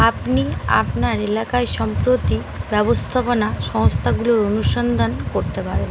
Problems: constant background noise